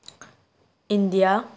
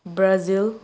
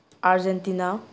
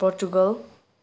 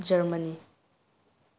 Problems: none marked